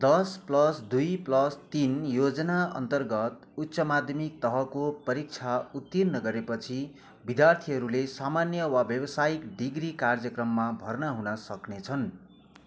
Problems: none marked